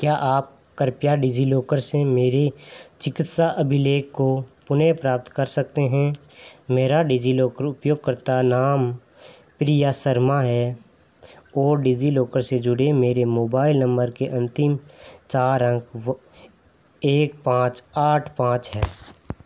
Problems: none marked